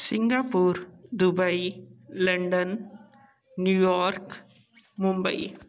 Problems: continuous background conversations